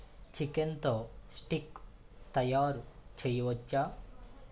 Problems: none marked